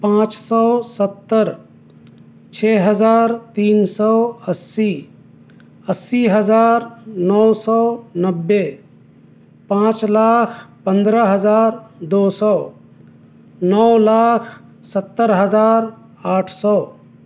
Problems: none marked